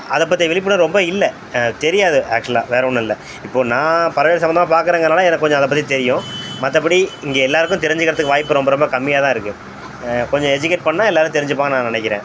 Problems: constant background noise